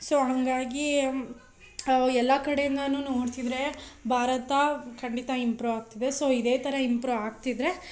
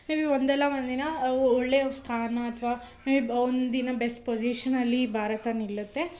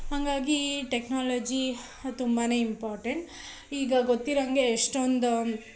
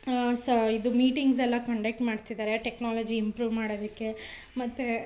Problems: none marked